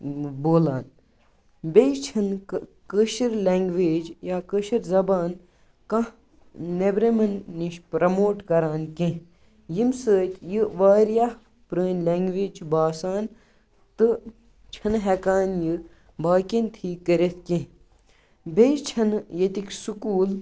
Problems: none marked